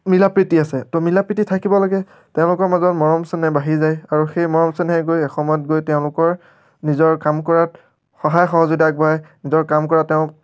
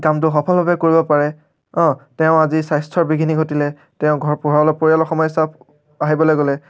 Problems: none marked